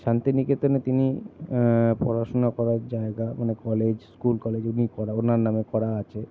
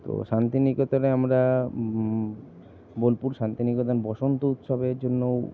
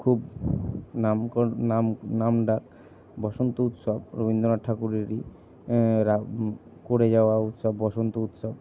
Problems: none marked